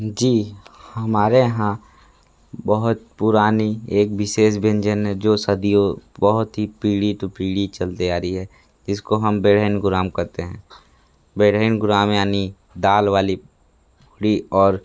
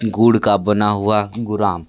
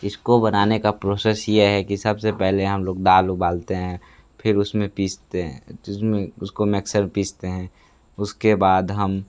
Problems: constant background noise